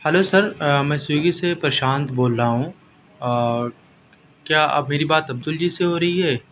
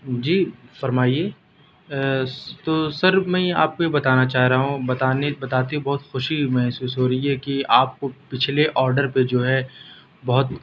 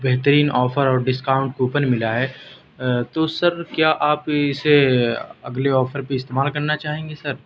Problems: none marked